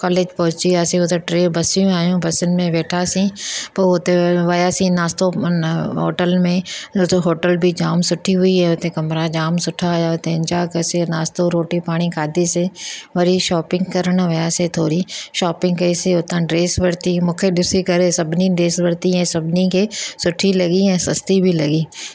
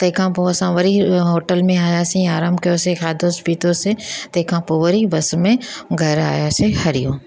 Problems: none marked